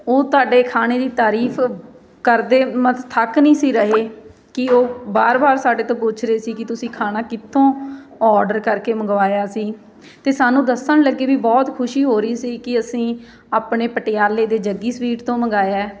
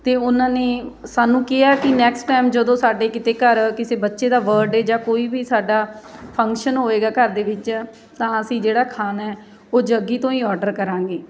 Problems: constant background noise